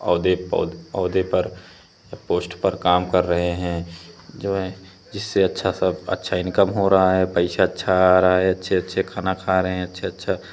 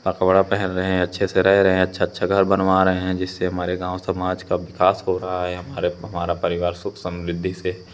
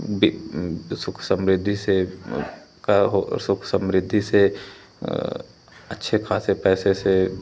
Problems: none marked